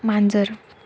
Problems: constant background noise